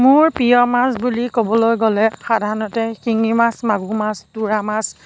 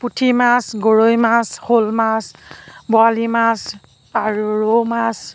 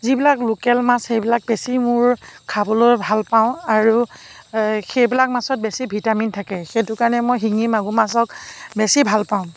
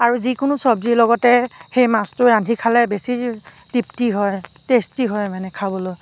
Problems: background sounds at intervals